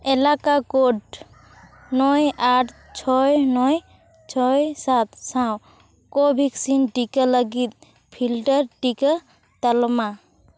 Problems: background sounds at intervals